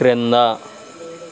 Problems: constant background noise